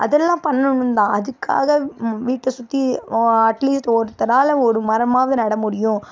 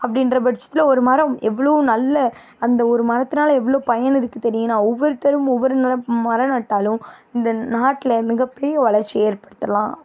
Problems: background sounds at intervals